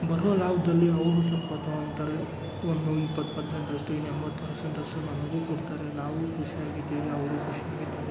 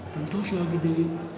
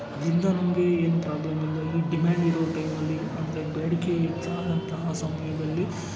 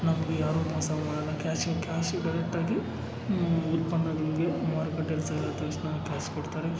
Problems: background sounds at intervals, background conversations at intervals